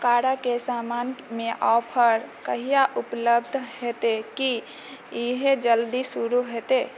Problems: background sounds at intervals